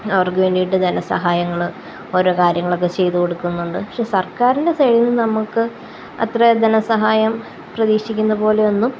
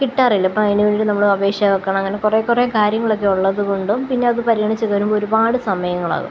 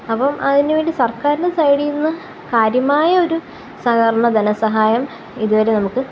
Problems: constant background noise, low volume